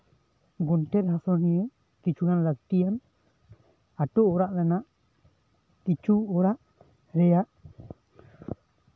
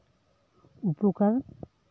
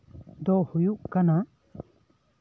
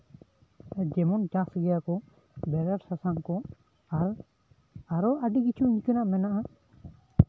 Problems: constant background noise